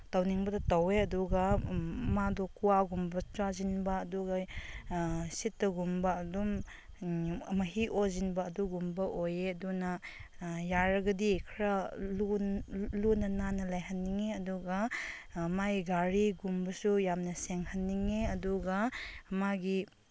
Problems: constant background noise